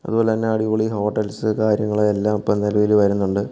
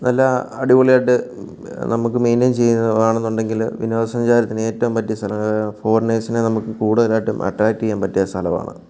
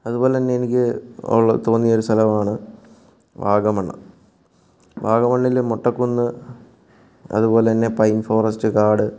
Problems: background sounds at intervals